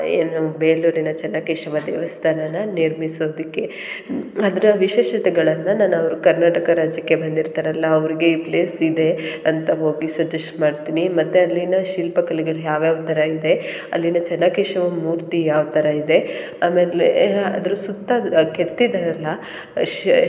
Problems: none marked